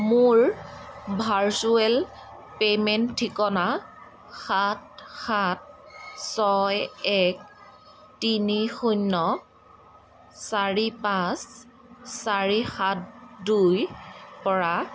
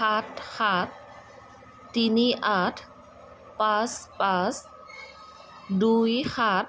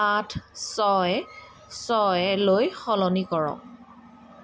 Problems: constant background noise